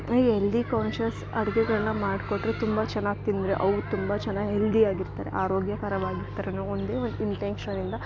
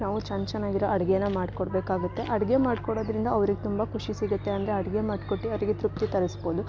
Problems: background sounds at intervals